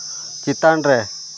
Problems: constant background noise